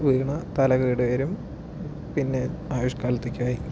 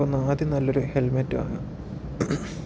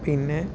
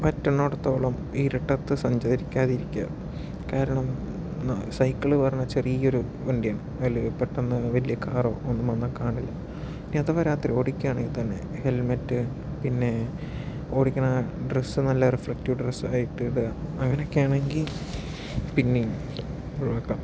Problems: background sounds at intervals, low volume